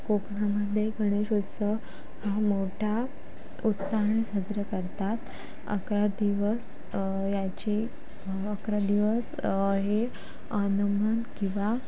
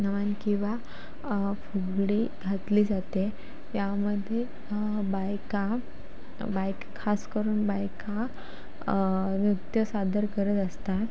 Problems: constant background noise, background conversations at intervals